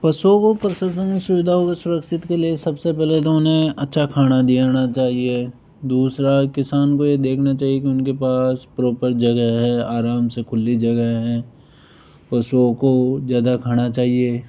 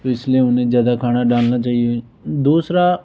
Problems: background sounds at intervals